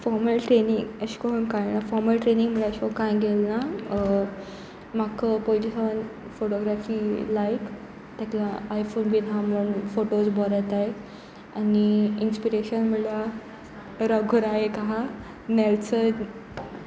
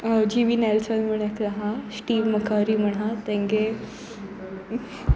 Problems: constant background noise, background conversations at intervals